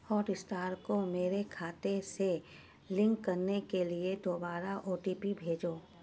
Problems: none marked